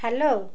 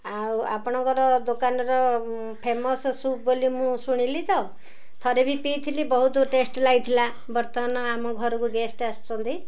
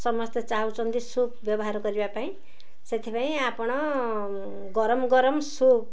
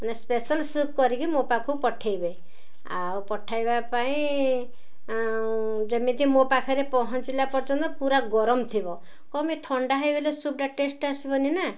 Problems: none marked